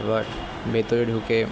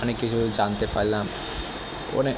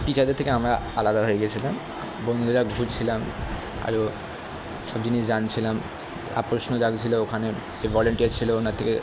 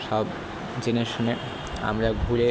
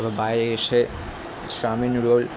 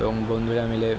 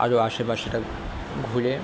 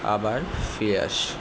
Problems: constant background noise